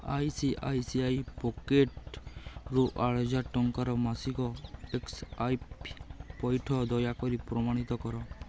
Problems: constant background noise